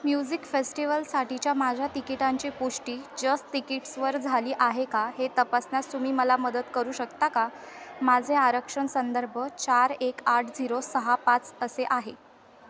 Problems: constant background noise, continuous background conversations